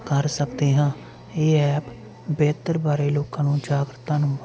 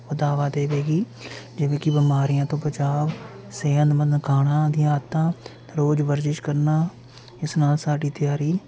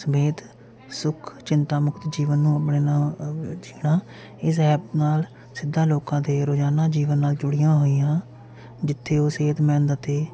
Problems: none marked